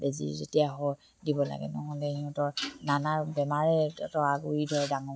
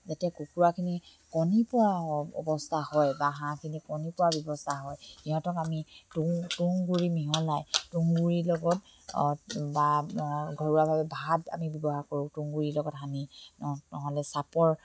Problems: none marked